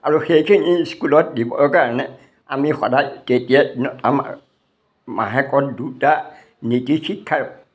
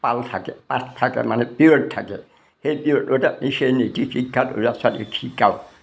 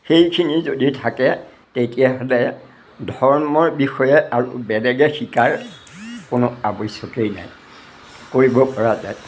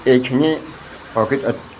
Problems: none marked